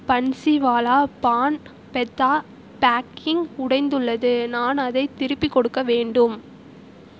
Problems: constant background noise